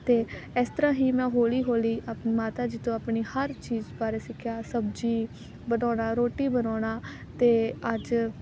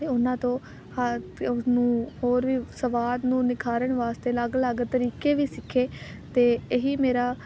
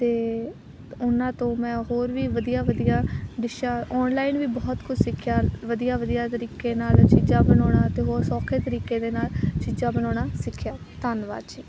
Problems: none marked